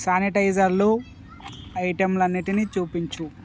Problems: none marked